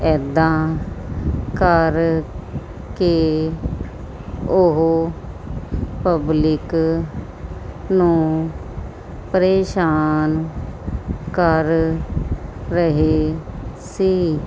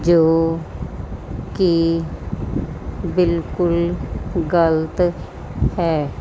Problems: background sounds at intervals